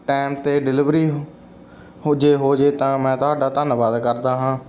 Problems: none marked